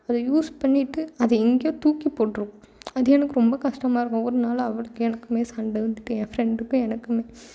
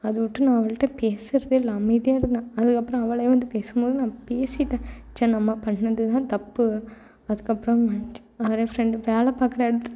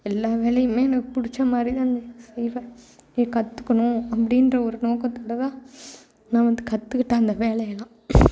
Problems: background sounds at intervals